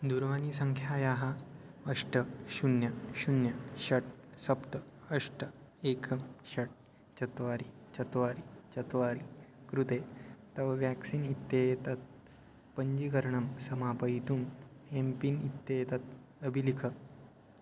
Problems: constant background noise